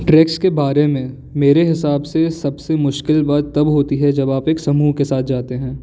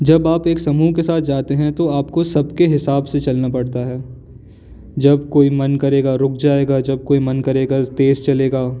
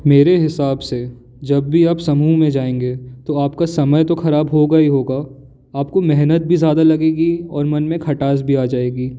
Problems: background sounds at intervals